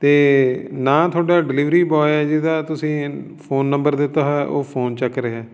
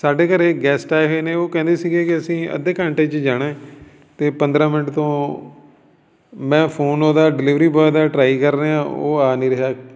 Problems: continuous background conversations